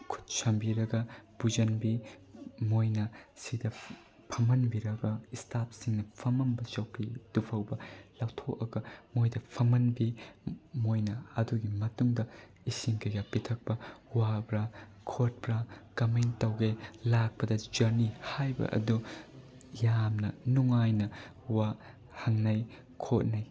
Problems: none marked